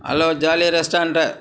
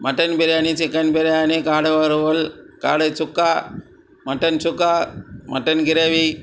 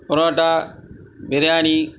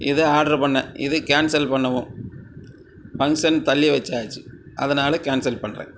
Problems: none marked